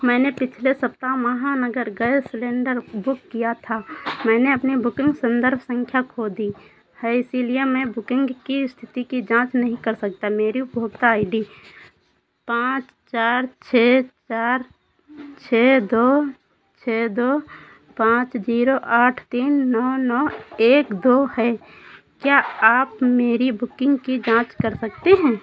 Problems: none marked